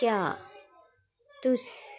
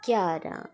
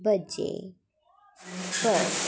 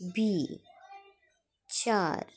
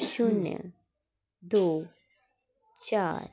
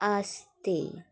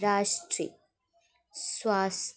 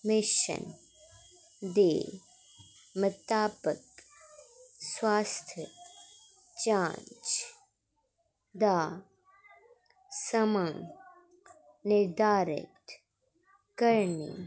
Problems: constant background noise